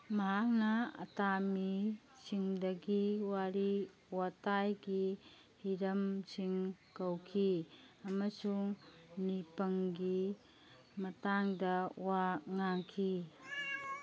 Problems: background sounds at intervals